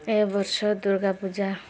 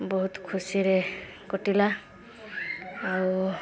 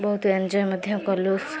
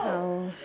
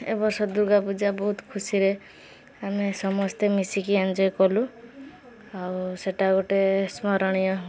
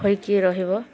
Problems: background sounds at intervals, background conversations at intervals